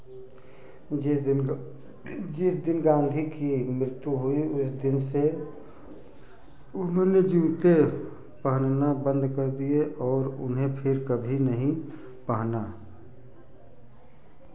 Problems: none marked